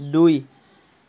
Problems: none marked